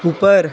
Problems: constant background noise